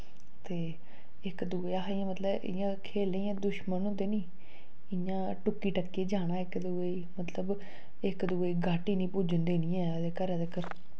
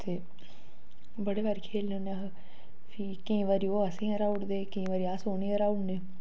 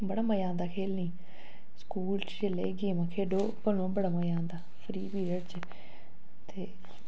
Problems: low volume